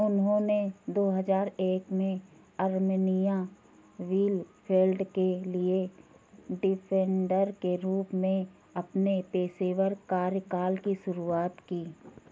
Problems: constant background noise